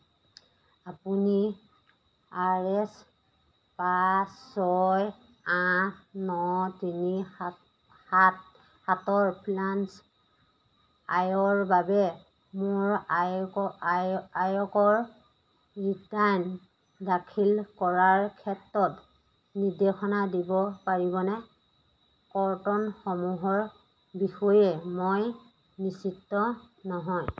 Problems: background sounds at intervals